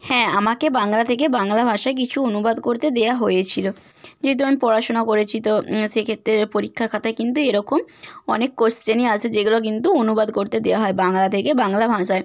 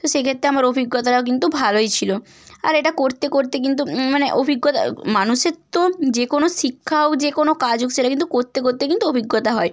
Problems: constant background noise